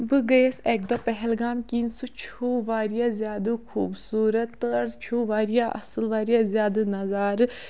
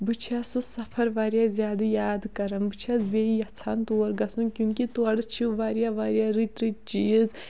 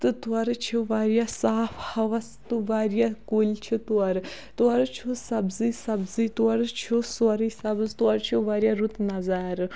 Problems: background sounds at intervals